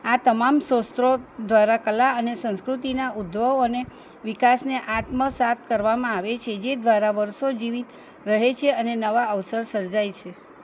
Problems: none marked